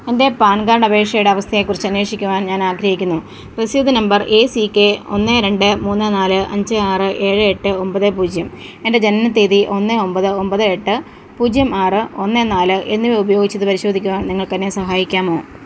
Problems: background sounds at intervals